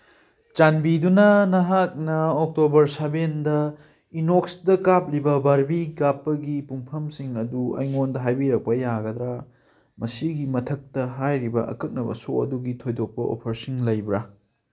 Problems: background conversations at intervals